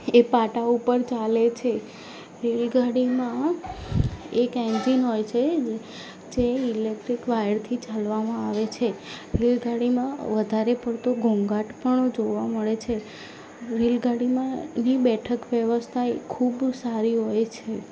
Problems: none marked